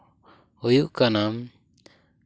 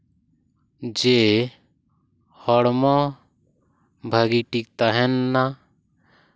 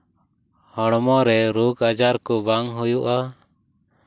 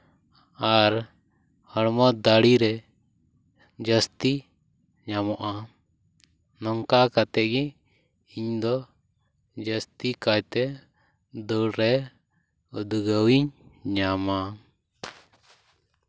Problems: none marked